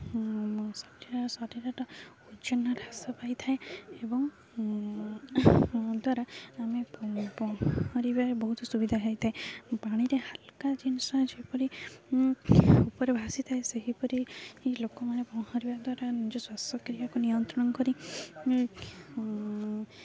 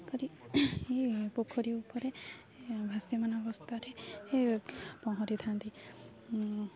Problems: none marked